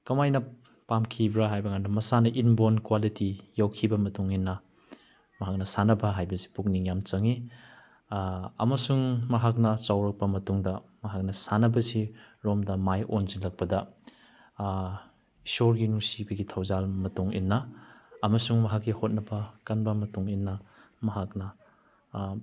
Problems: none marked